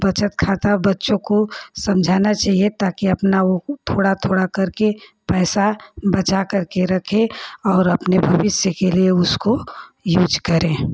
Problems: constant background noise